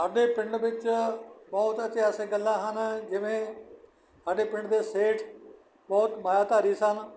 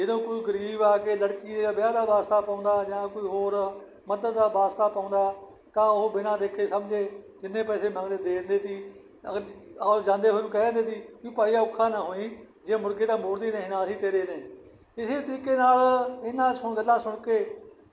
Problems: background sounds at intervals